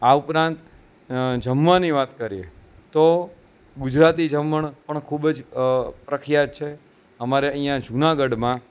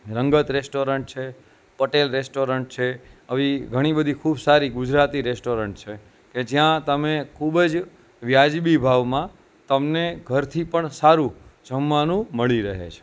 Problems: constant background noise